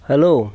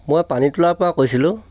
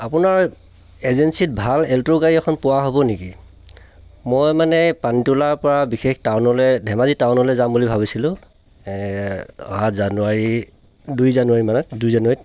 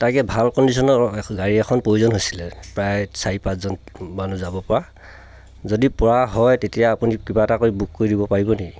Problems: none marked